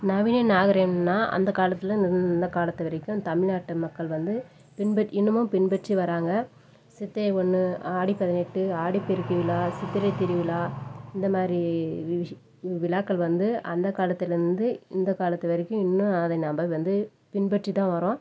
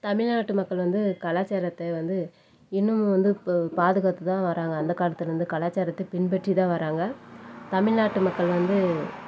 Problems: none marked